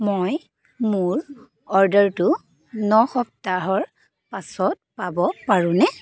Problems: background sounds at intervals